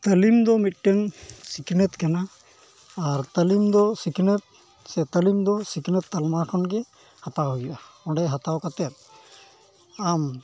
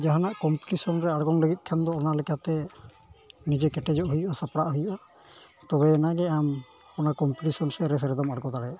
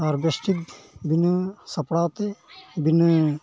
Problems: constant background noise, background conversations at intervals